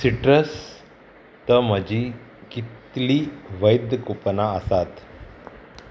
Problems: none marked